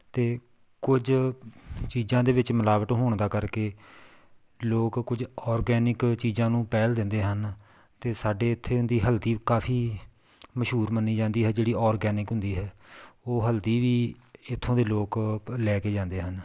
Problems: none marked